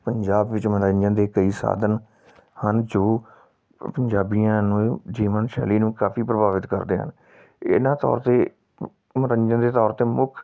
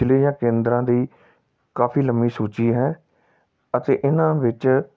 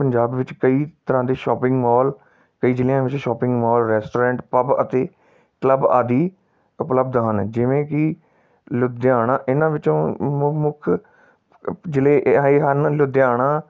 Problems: background sounds at intervals